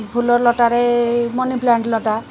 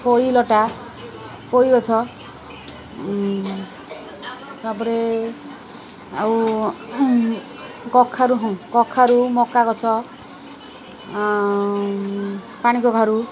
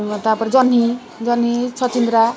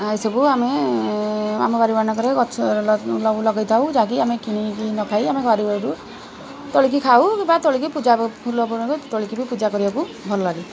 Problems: constant background noise